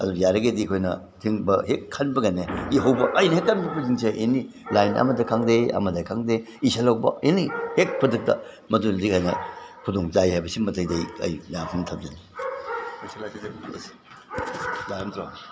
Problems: background sounds at intervals, background conversations at intervals